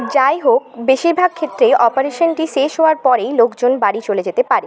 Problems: constant background noise, continuous background conversations